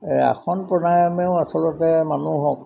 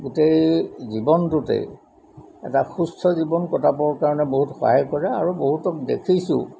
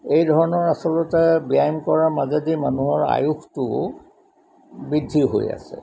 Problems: background sounds at intervals